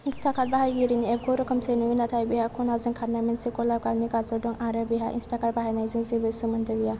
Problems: low volume